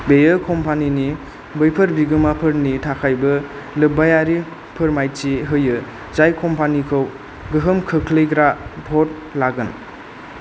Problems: none marked